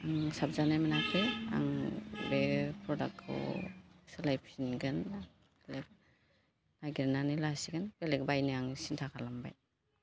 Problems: constant background noise